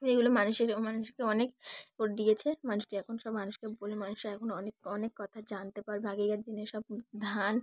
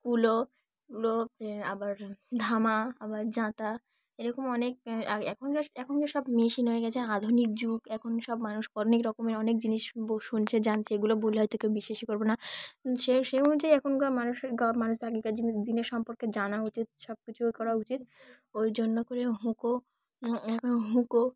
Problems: background sounds at intervals, background conversations at intervals